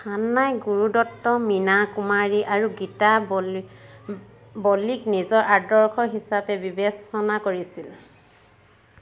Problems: constant background noise